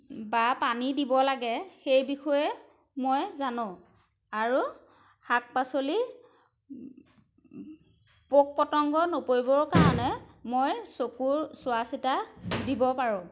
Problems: background sounds at intervals